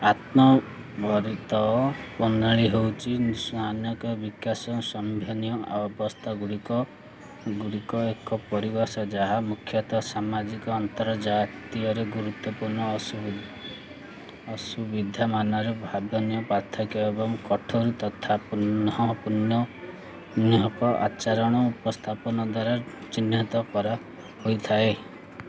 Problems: none marked